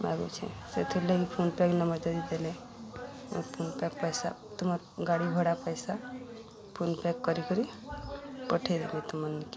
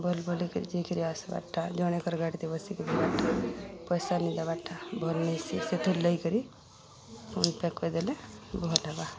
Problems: constant background noise